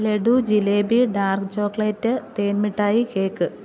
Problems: none marked